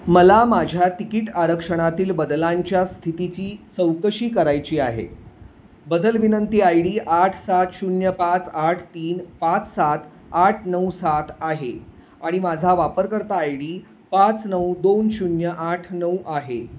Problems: none marked